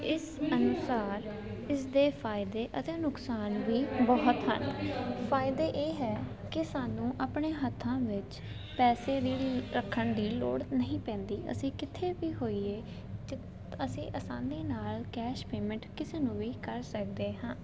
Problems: none marked